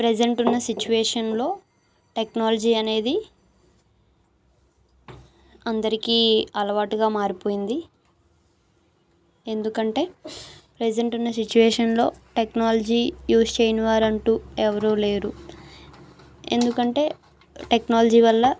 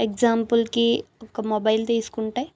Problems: background sounds at intervals